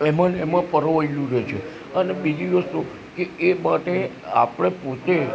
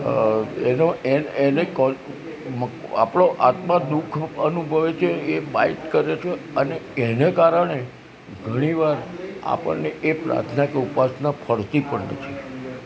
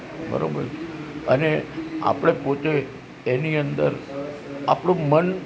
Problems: constant background noise